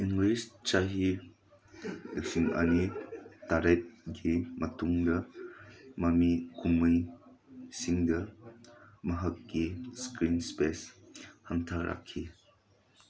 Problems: background conversations at intervals